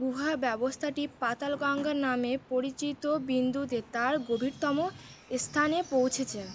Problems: constant background noise